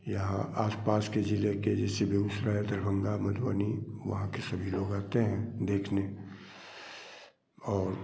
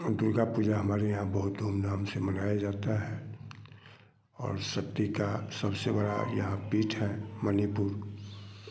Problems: constant background noise